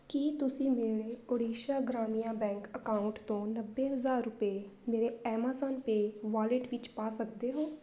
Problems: constant background noise